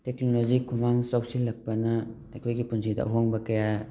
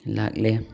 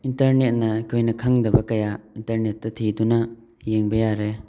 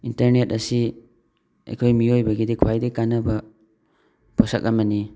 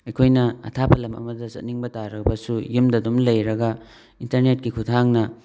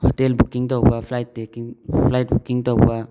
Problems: background sounds at intervals, background conversations at intervals